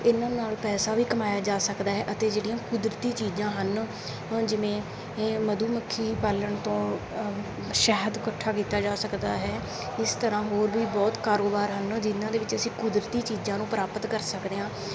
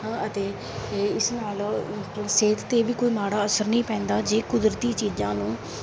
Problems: background sounds at intervals